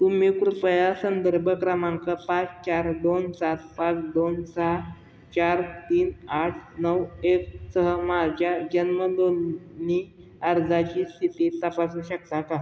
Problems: none marked